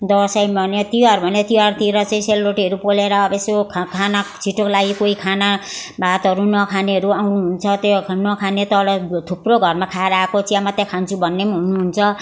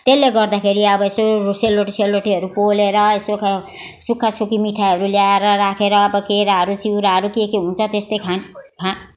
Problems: background sounds at intervals